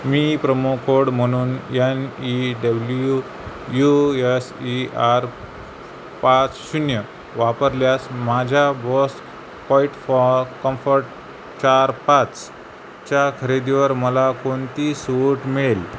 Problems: constant background noise